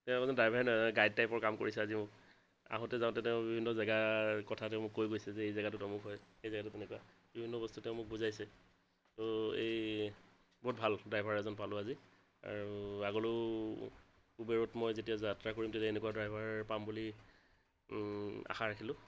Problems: constant background noise